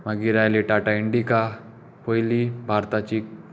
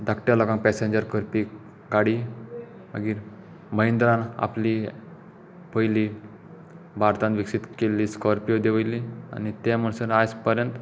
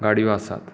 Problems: background sounds at intervals